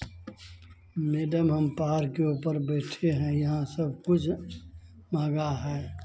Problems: constant background noise, background conversations at intervals